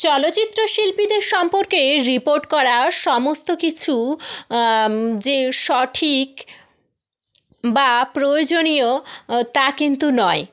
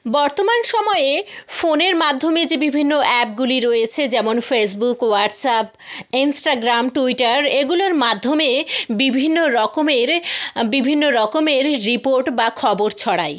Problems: background sounds at intervals